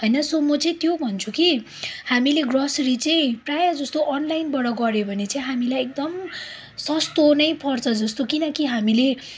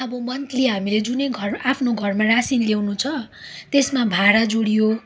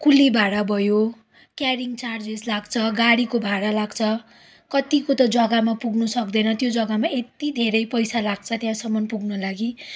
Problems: background sounds at intervals